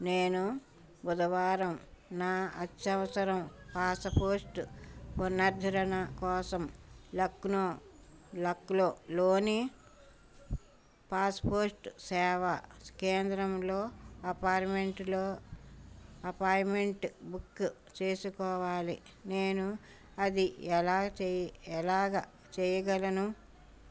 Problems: background sounds at intervals